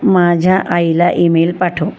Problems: none marked